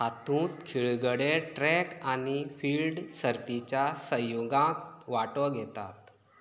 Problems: low volume